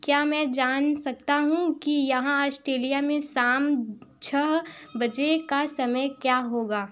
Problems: background sounds at intervals